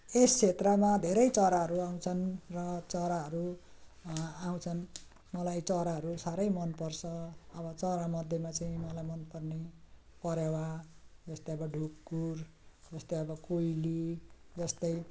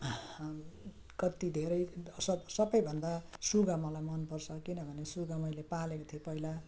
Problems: none marked